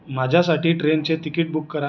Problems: none marked